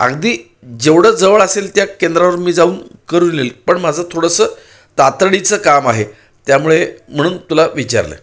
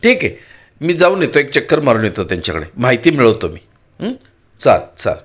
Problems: background sounds at intervals